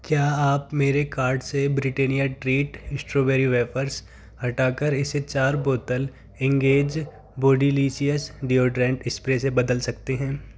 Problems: none marked